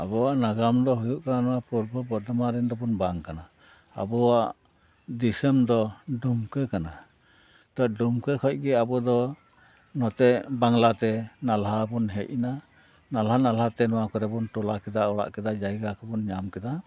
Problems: background sounds at intervals